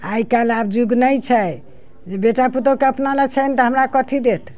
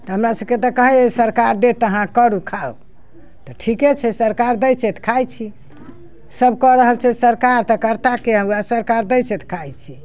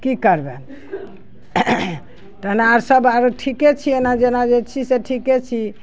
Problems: none marked